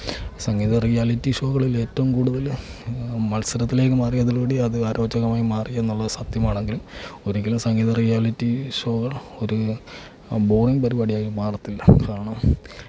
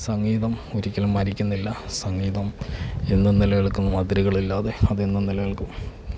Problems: constant background noise, low volume